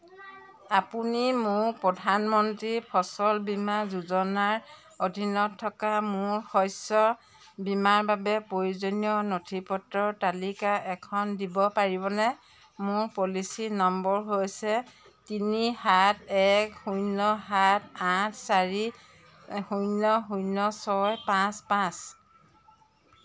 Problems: none marked